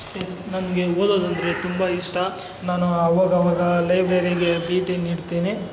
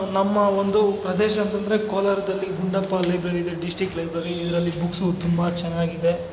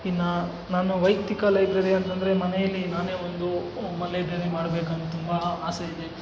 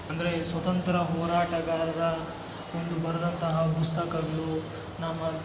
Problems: constant background noise